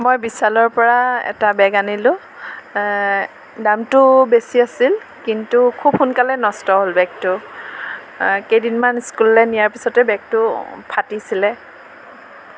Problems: none marked